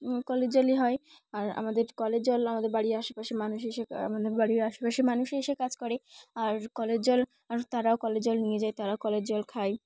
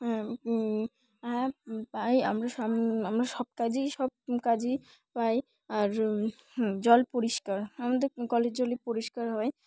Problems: background sounds at intervals, background conversations at intervals